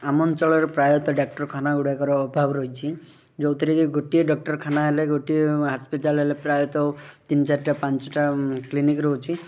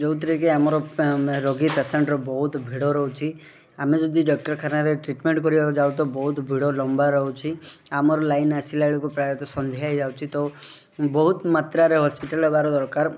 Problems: background sounds at intervals, background conversations at intervals